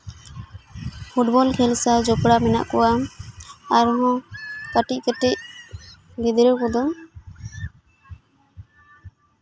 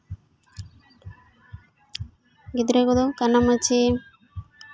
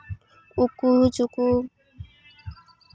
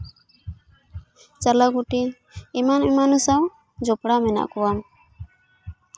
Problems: constant background noise